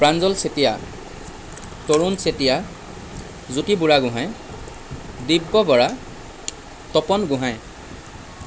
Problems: constant background noise